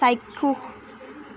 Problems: none marked